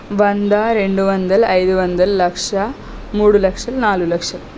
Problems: none marked